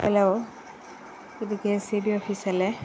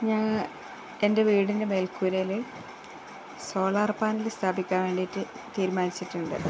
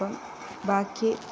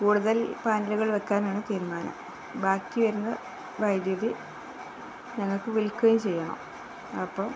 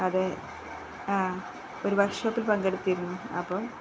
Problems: constant background noise, low volume